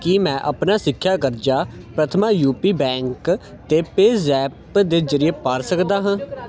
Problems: constant background noise